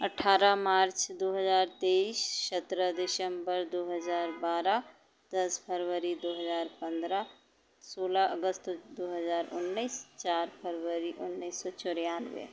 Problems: background sounds at intervals